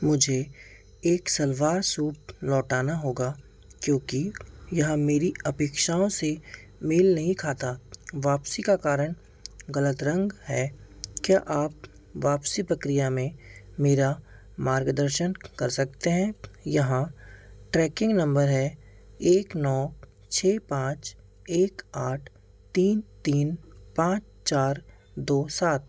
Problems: background sounds at intervals